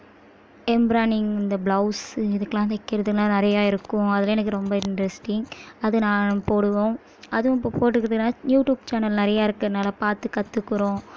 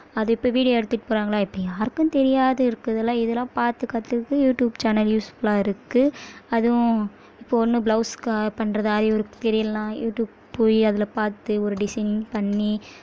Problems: none marked